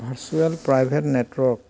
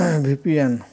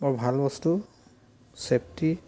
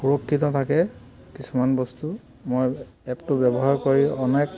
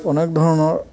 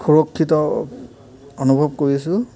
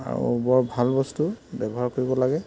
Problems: background sounds at intervals